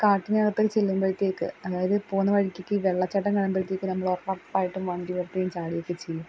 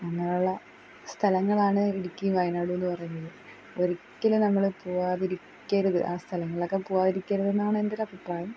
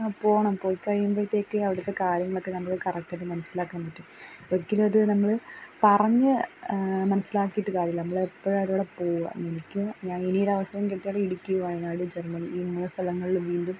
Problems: background sounds at intervals